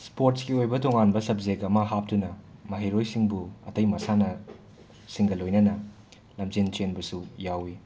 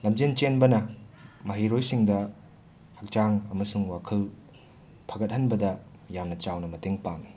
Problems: constant background noise, background conversations at intervals